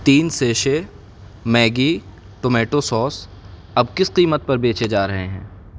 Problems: constant background noise